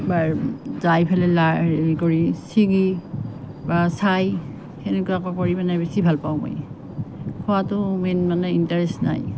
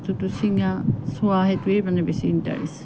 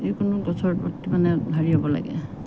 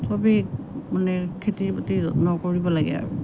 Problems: none marked